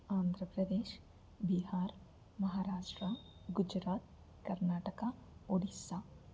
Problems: constant background noise